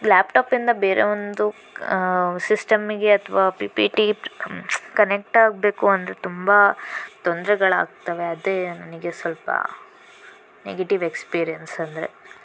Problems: constant background noise